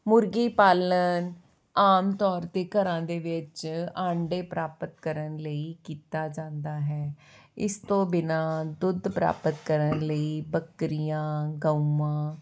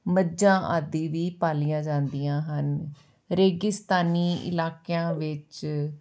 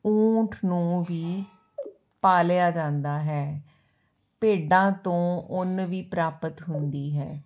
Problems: background sounds at intervals